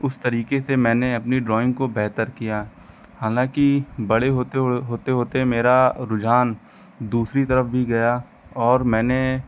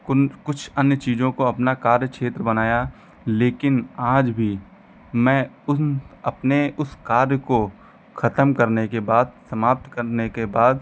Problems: background sounds at intervals